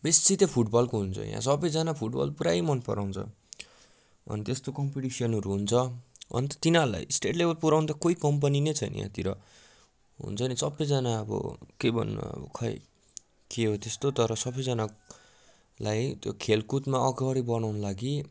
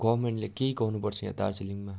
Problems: none marked